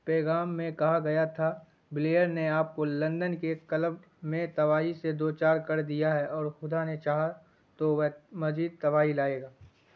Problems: none marked